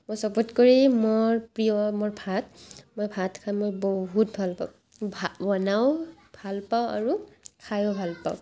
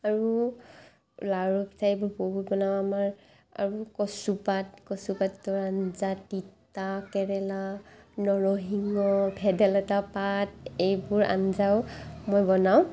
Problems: background sounds at intervals, background conversations at intervals